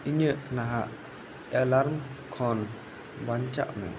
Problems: constant background noise